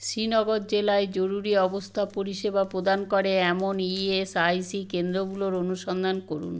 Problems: continuous background conversations